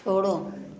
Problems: background sounds at intervals